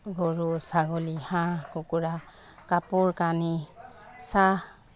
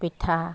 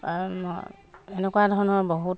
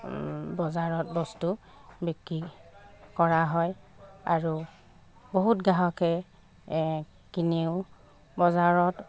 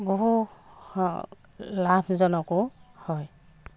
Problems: constant background noise